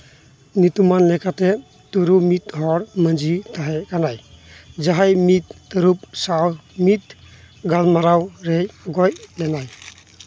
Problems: none marked